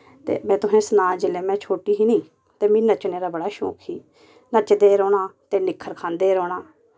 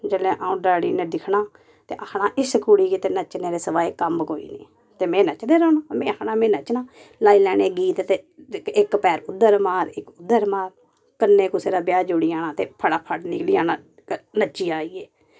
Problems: none marked